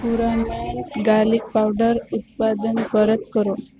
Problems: constant background noise